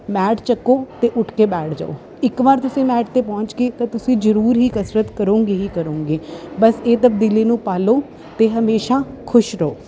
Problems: constant background noise